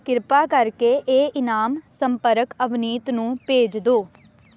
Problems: constant background noise